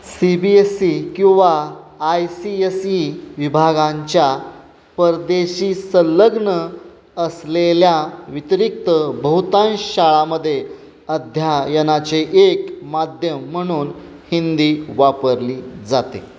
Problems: constant background noise, background conversations at intervals